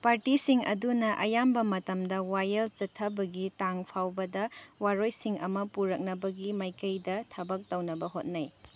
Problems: none marked